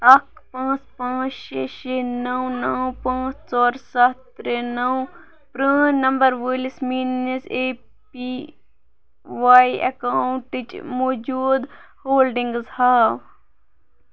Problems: background sounds at intervals